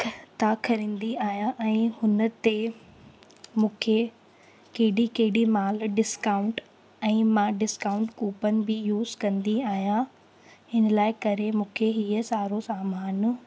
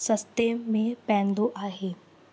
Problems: constant background noise, echo